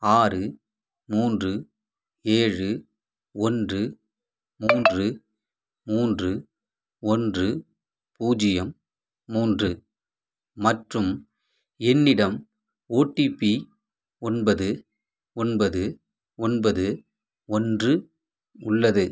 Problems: background sounds at intervals